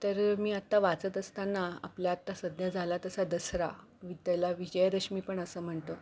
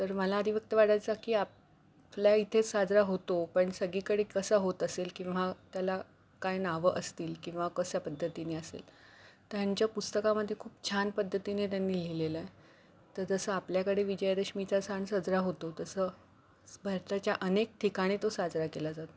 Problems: background sounds at intervals